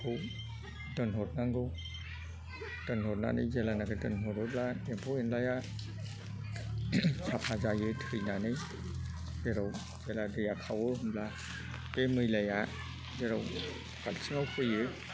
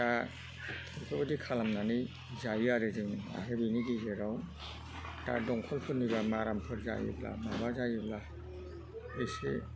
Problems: background conversations at intervals